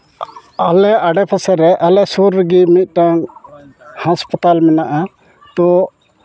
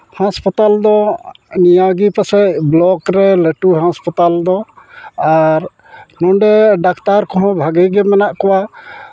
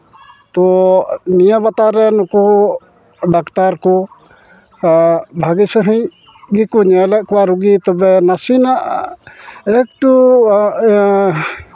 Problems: constant background noise, background conversations at intervals